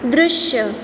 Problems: constant background noise